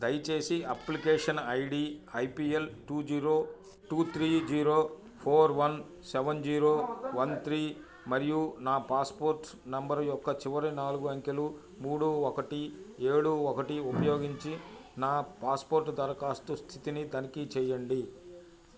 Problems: continuous background conversations